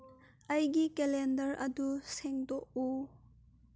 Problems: none marked